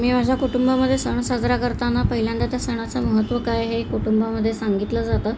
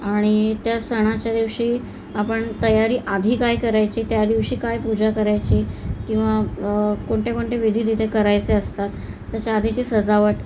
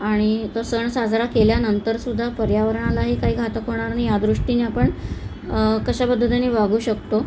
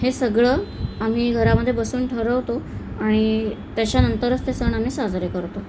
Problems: none marked